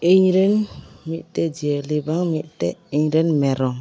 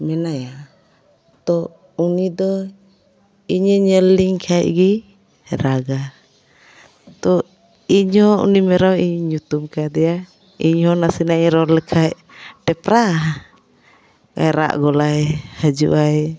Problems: constant background noise, continuous background conversations